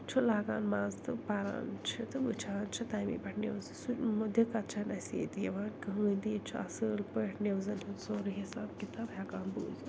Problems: constant background noise, low volume